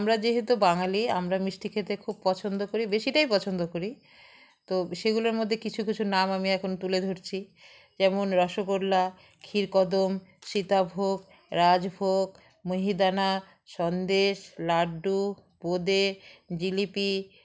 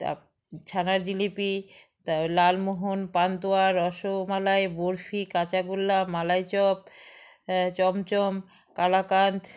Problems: background sounds at intervals